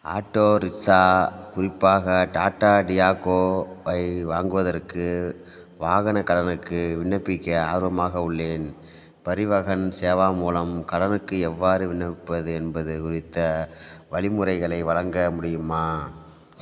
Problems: background sounds at intervals